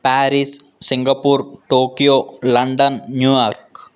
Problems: none marked